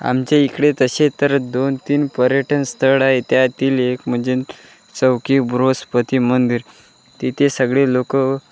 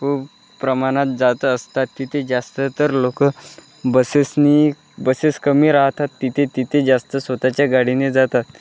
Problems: constant background noise, background conversations at intervals